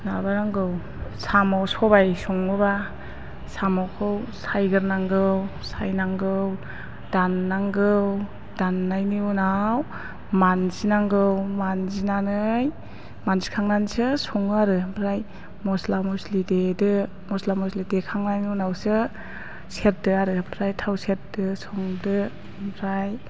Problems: constant background noise